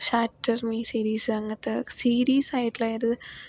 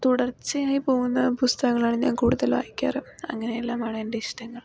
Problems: low volume